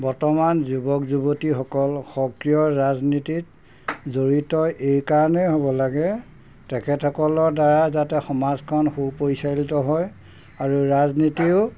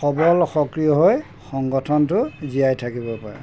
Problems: background sounds at intervals